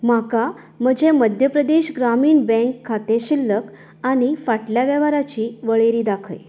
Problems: background sounds at intervals